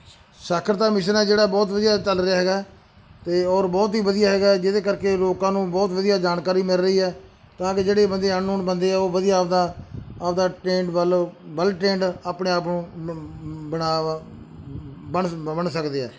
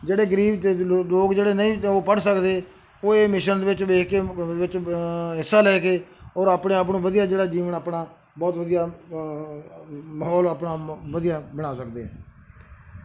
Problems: background sounds at intervals